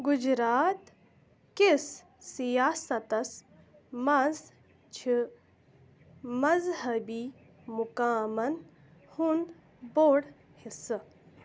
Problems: background sounds at intervals